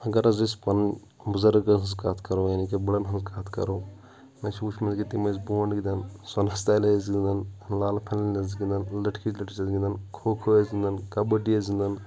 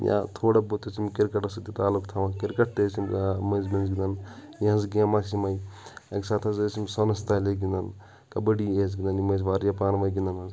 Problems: background conversations at intervals